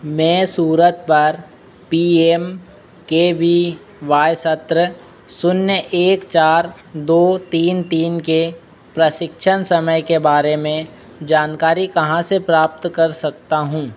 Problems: constant background noise